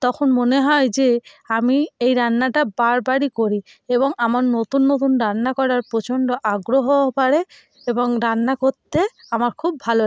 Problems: background sounds at intervals